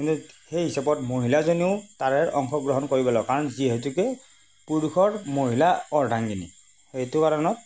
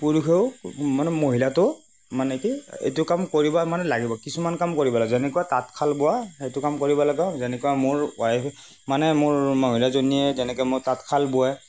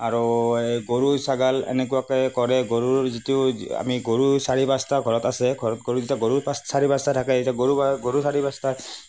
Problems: none marked